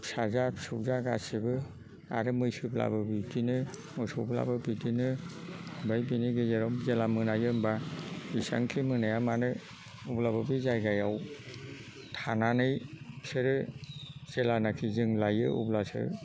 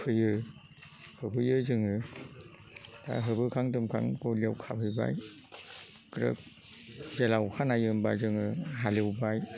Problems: constant background noise